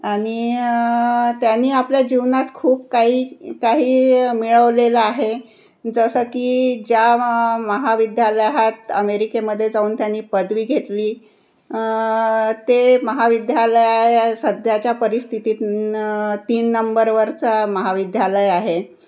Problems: none marked